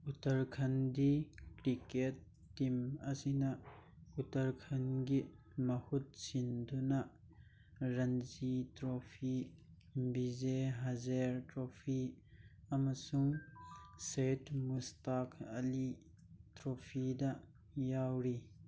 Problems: background sounds at intervals